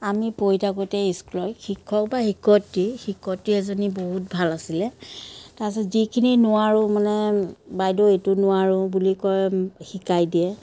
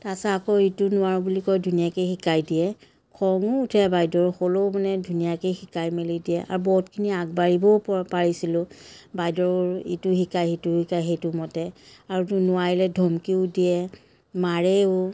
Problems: none marked